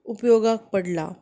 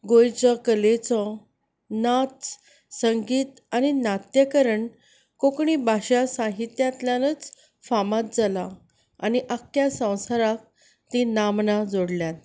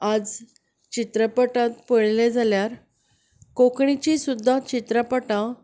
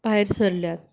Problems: none marked